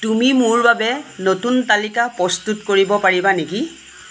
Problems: constant background noise